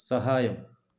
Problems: low volume